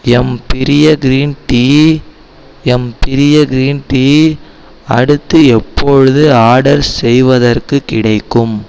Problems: none marked